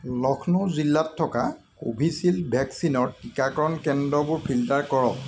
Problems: constant background noise